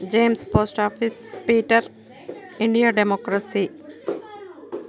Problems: continuous background conversations